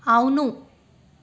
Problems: constant background noise